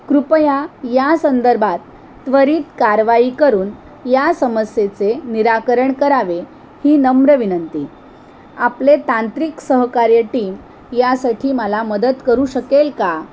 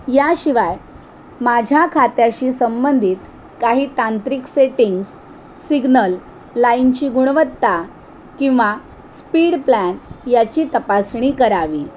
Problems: constant background noise